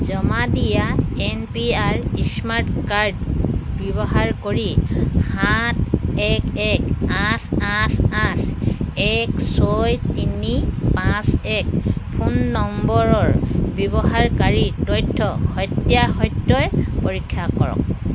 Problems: constant background noise